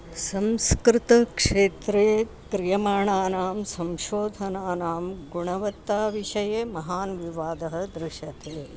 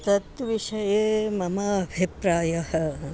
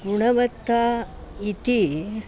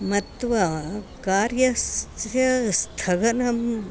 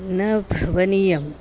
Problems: constant background noise